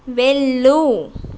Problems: none marked